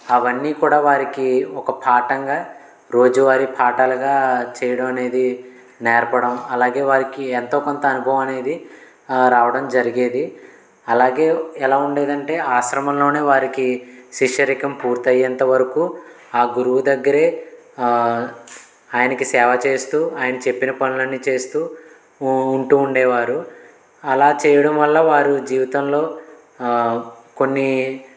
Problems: constant background noise